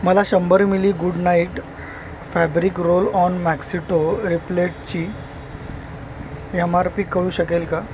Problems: constant background noise